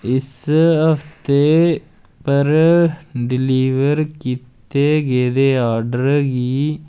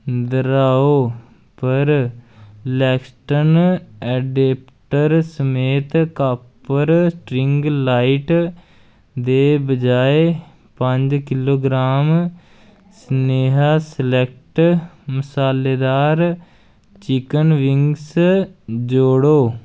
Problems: none marked